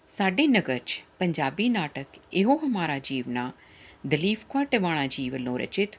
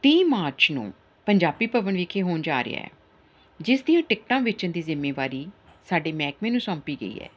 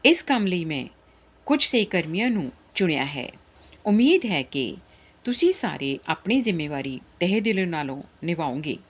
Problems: background sounds at intervals